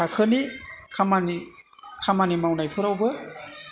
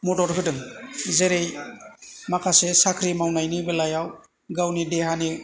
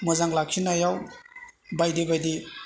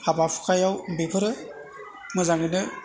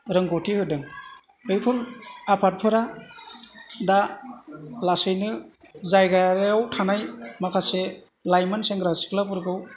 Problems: low volume